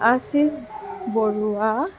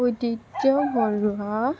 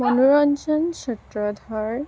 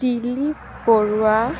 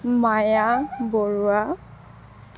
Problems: constant background noise